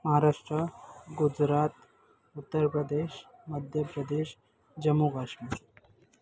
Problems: constant background noise, background conversations at intervals